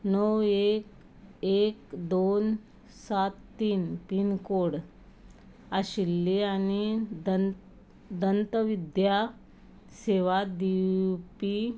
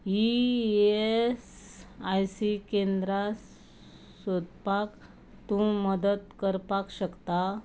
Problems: none marked